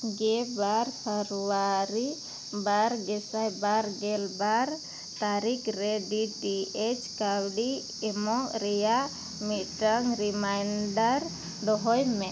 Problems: background sounds at intervals